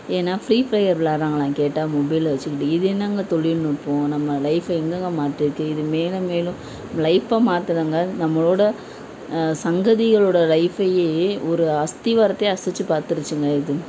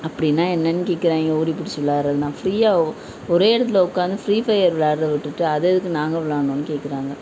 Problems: none marked